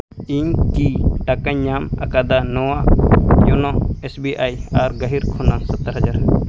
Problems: background sounds at intervals